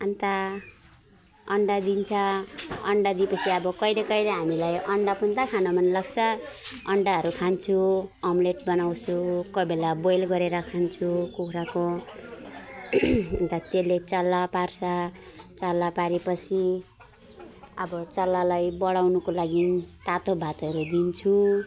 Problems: constant background noise